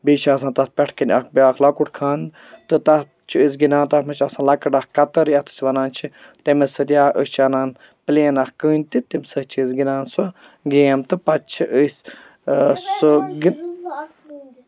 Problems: background sounds at intervals